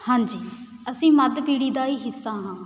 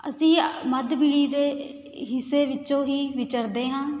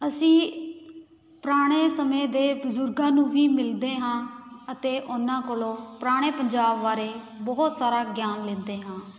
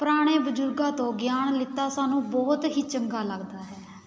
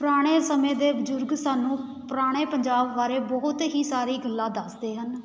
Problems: constant background noise